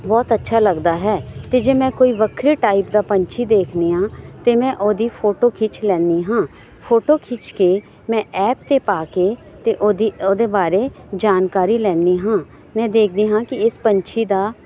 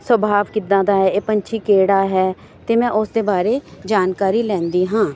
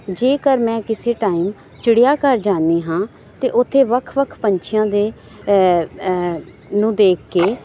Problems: background sounds at intervals